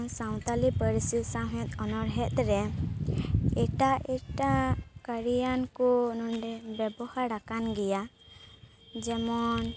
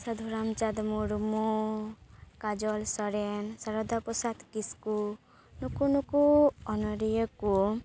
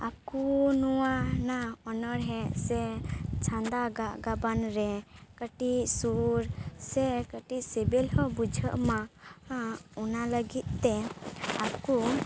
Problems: none marked